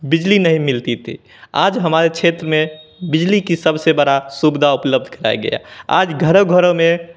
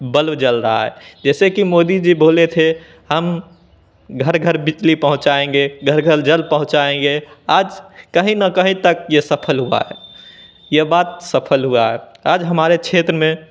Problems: none marked